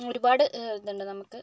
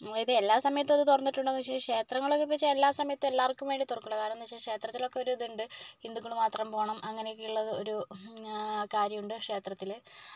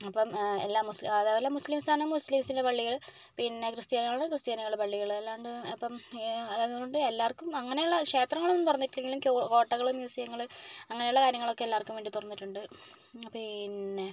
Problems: low volume